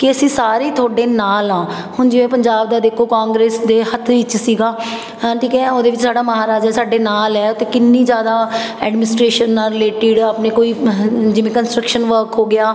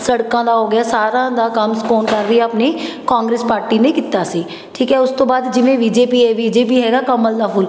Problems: none marked